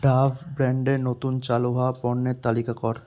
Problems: constant background noise